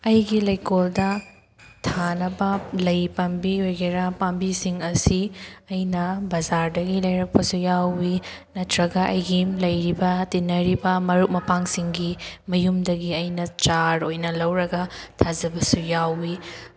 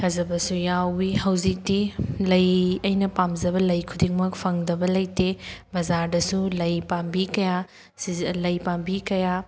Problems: background sounds at intervals